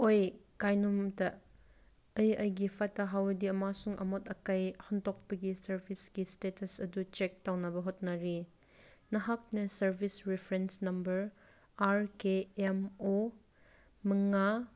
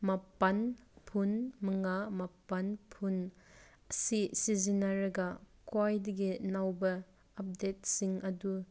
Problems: none marked